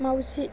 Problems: constant background noise